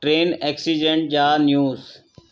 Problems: constant background noise, echo